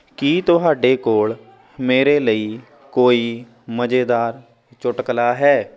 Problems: constant background noise